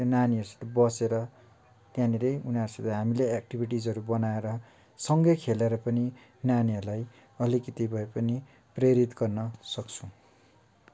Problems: none marked